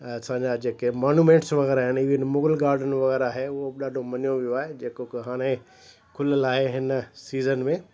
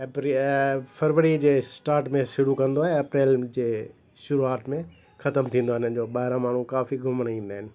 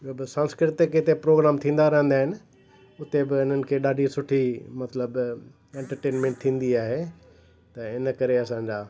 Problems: constant background noise